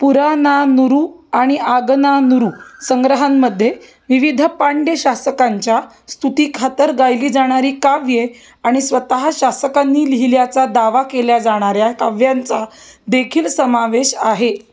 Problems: none marked